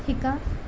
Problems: none marked